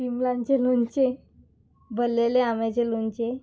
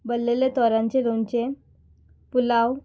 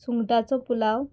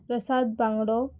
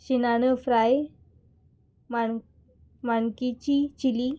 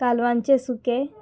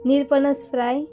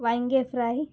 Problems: background sounds at intervals